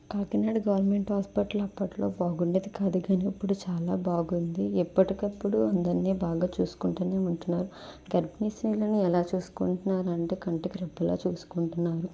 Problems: none marked